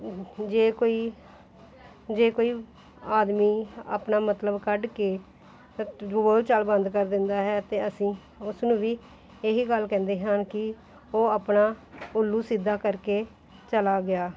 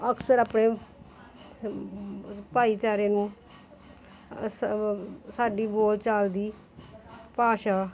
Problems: continuous background conversations